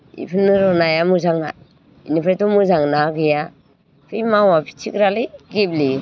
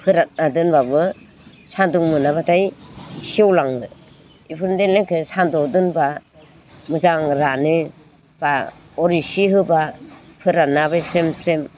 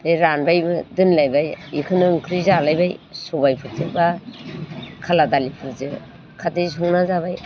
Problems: constant background noise